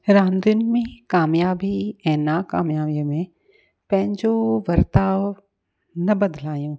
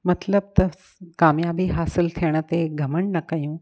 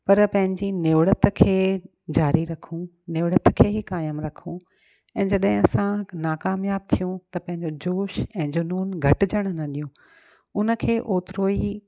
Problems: none marked